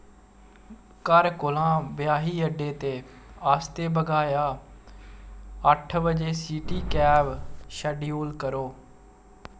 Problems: none marked